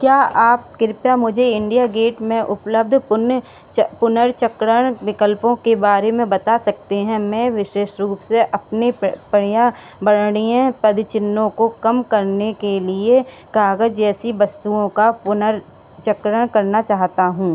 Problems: background sounds at intervals